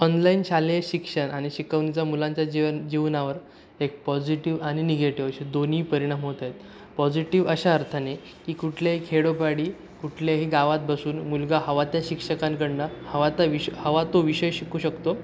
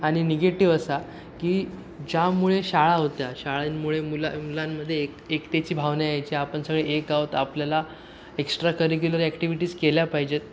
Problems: constant background noise